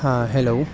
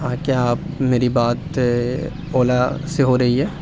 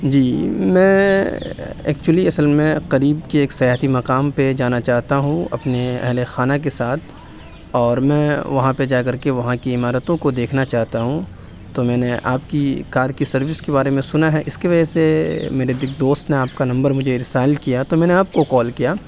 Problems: none marked